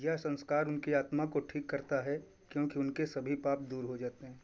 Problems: none marked